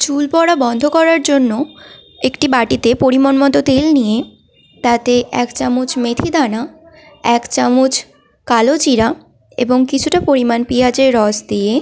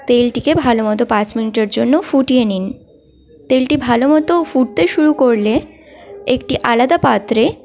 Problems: constant background noise, continuous background conversations